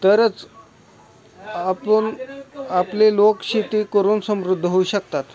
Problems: constant background noise, continuous background conversations